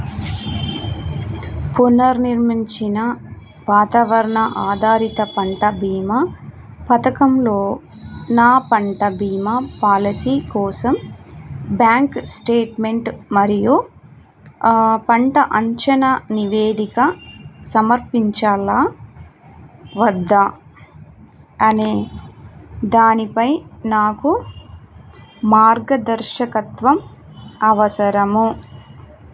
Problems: none marked